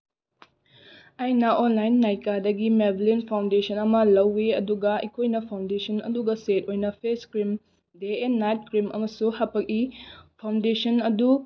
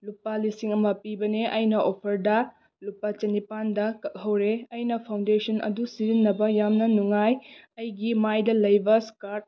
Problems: none marked